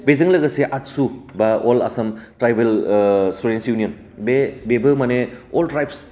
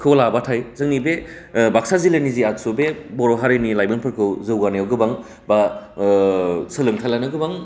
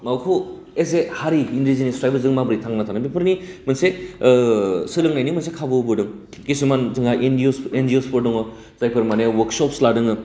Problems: none marked